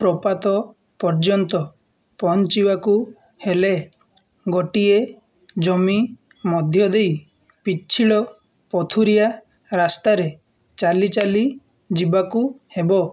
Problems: none marked